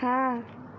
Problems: constant background noise